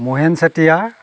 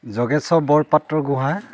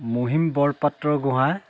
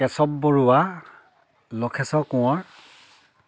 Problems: none marked